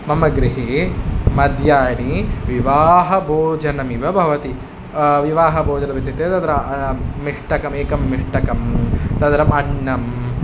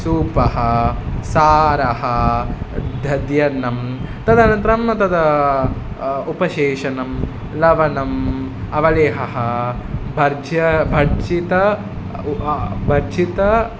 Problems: none marked